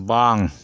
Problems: constant background noise